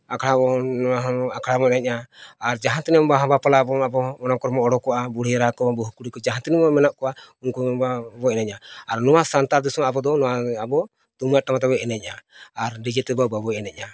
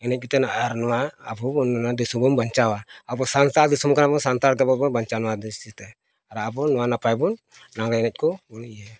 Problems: none marked